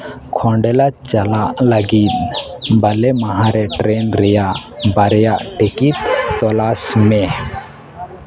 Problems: constant background noise, background conversations at intervals